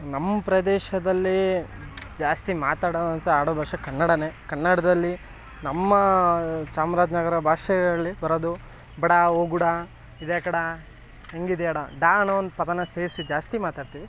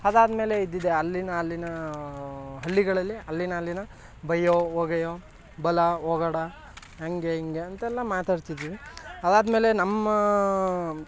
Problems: background sounds at intervals